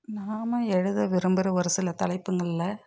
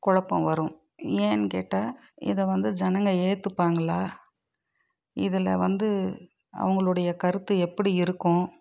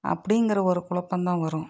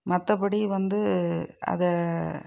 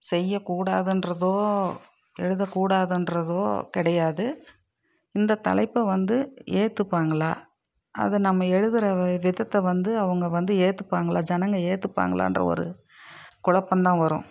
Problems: none marked